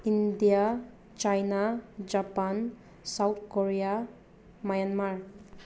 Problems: background sounds at intervals